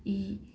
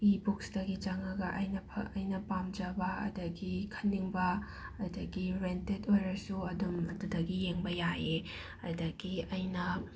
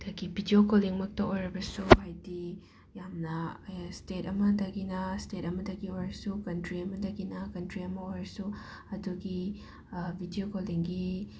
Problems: constant background noise